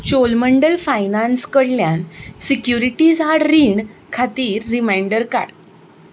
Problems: background sounds at intervals